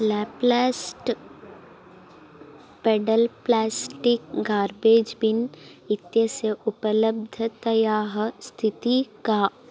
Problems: constant background noise